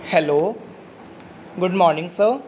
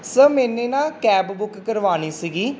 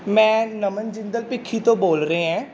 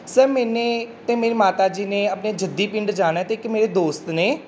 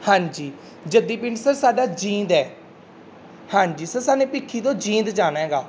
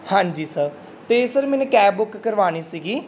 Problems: constant background noise